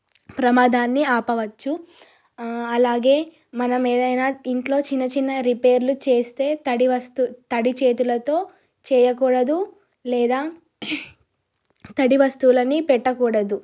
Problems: none marked